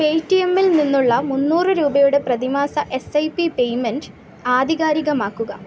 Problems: none marked